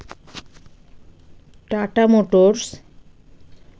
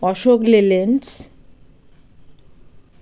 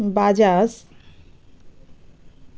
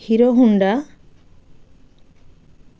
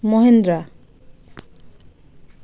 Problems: none marked